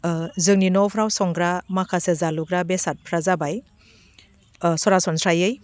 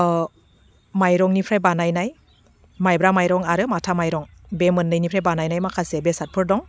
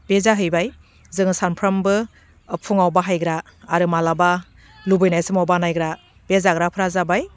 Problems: none marked